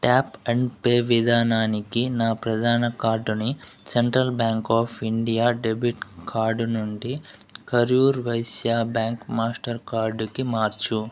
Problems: background sounds at intervals